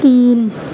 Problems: constant background noise, continuous background conversations